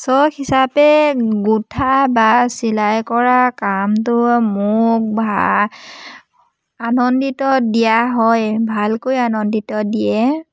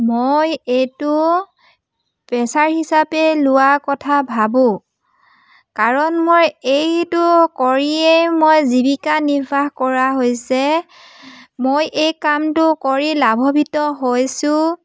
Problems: none marked